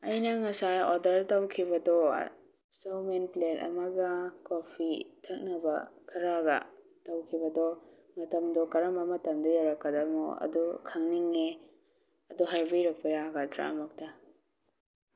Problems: none marked